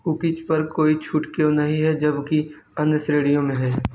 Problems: none marked